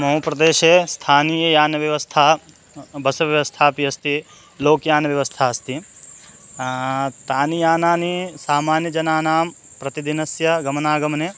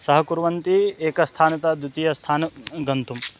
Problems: constant background noise